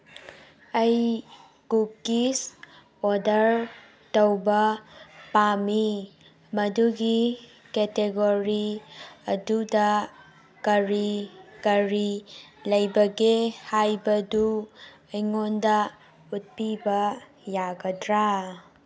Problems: none marked